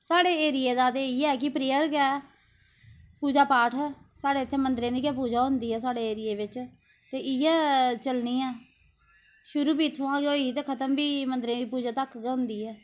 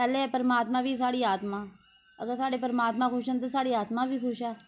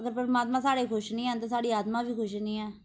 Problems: constant background noise